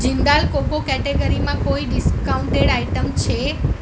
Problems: constant background noise